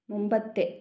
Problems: low volume